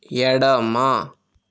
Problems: none marked